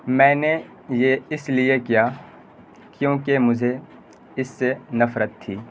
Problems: constant background noise